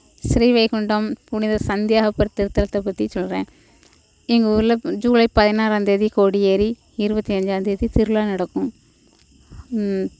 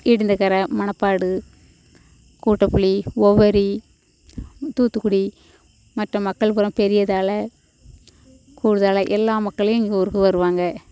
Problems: background sounds at intervals